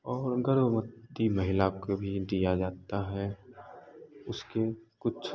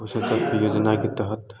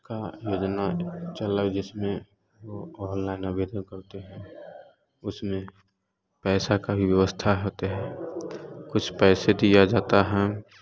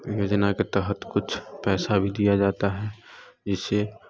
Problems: none marked